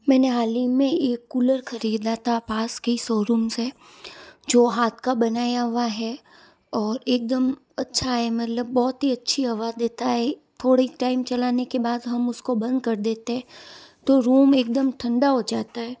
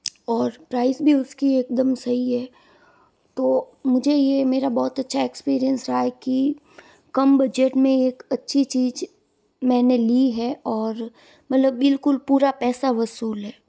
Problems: none marked